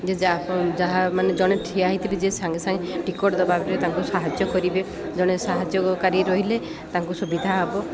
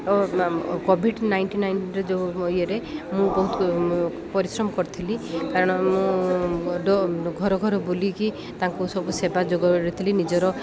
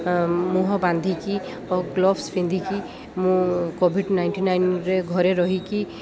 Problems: none marked